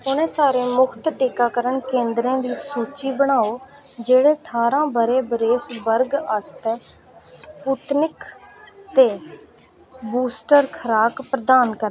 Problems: none marked